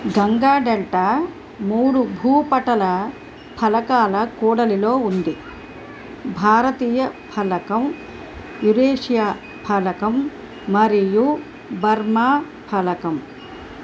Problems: background sounds at intervals